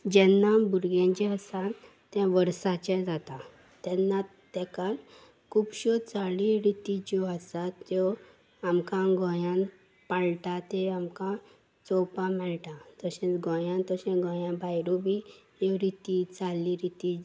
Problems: none marked